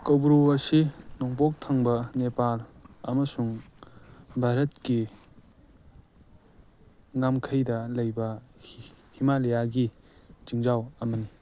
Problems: none marked